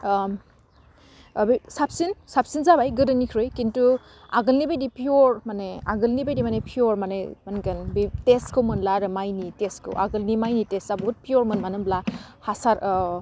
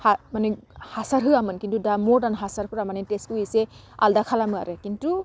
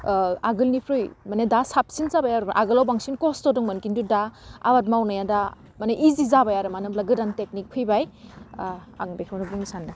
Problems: none marked